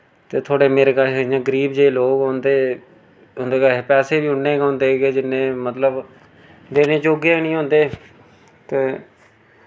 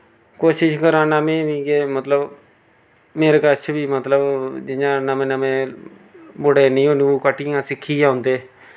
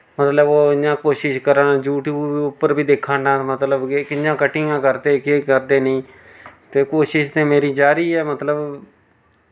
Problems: none marked